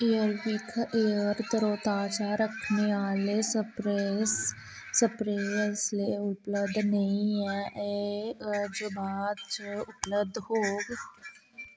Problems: constant background noise